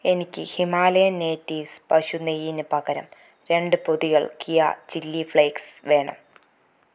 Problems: none marked